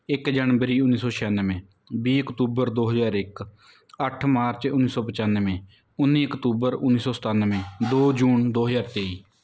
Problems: background sounds at intervals